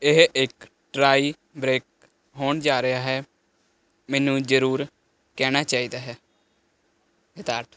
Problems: constant background noise